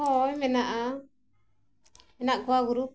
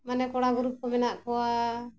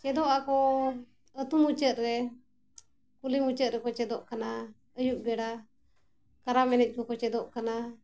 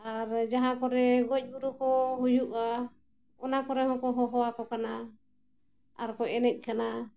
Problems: constant background noise